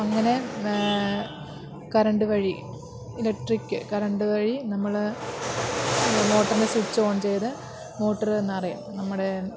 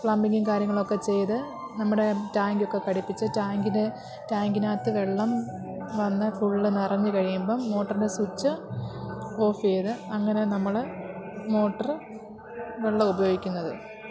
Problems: constant background noise